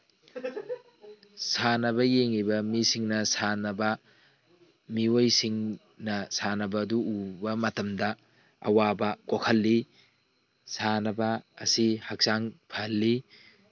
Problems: background sounds at intervals, background conversations at intervals